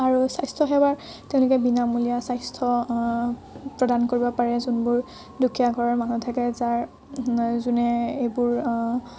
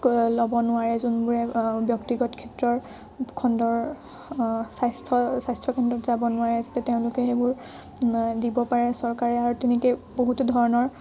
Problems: none marked